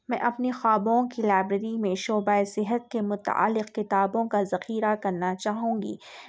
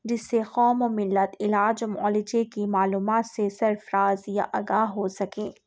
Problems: none marked